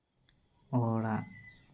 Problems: none marked